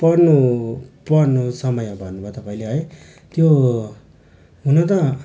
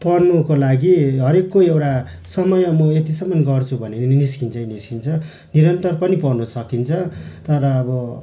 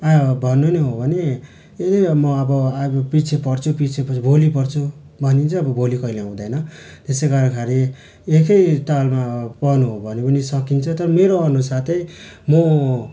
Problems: none marked